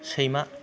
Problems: background sounds at intervals